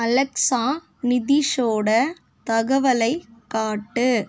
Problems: none marked